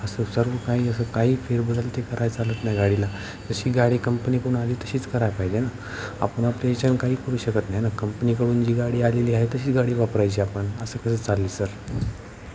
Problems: constant background noise, continuous background conversations